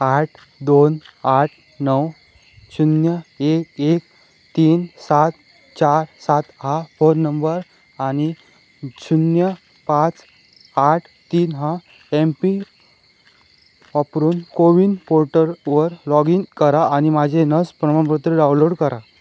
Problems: none marked